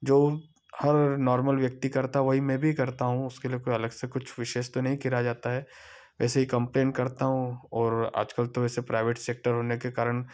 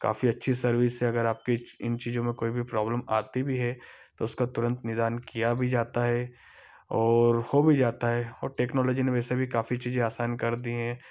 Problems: background sounds at intervals